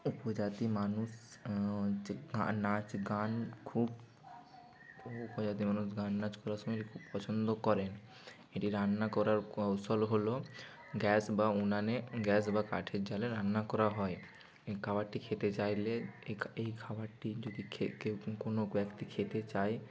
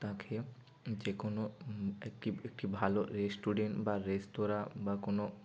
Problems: none marked